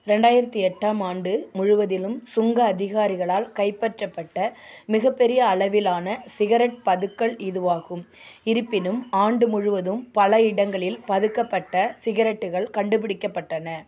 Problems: constant background noise